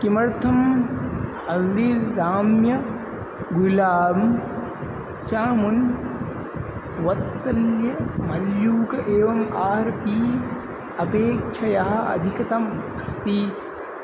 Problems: constant background noise